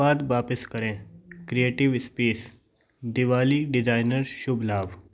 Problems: background sounds at intervals